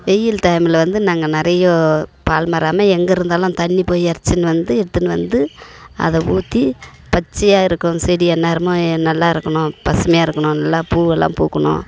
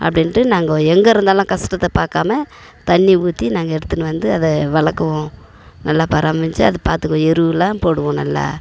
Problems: background sounds at intervals